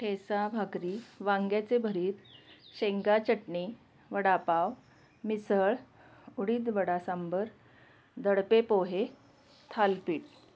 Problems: constant background noise